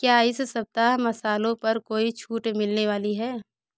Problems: background sounds at intervals